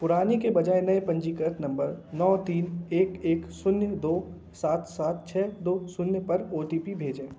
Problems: constant background noise